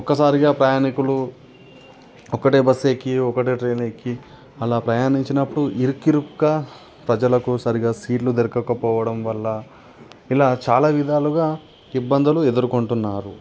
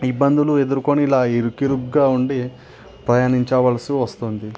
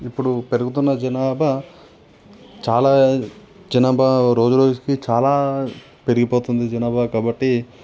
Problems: none marked